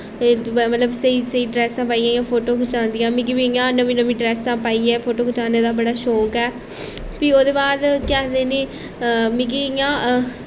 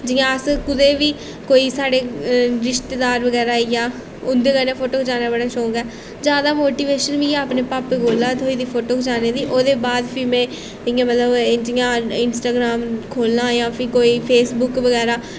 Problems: constant background noise